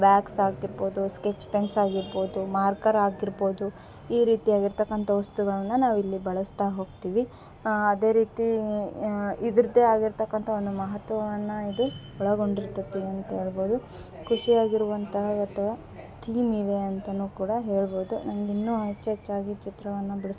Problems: background sounds at intervals